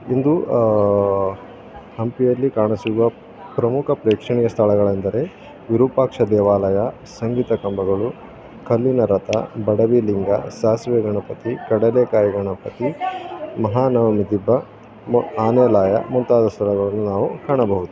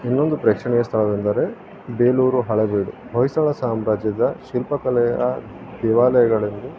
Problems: none marked